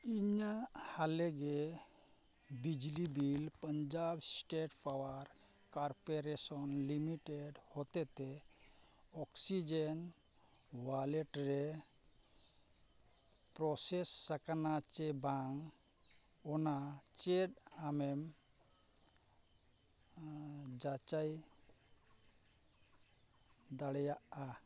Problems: none marked